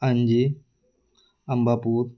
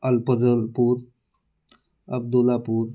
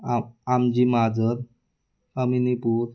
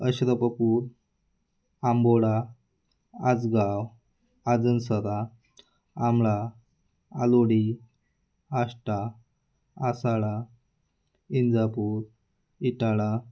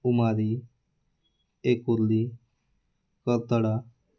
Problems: none marked